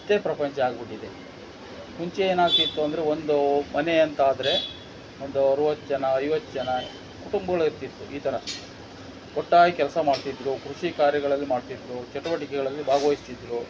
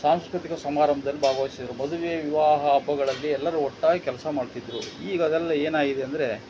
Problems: background sounds at intervals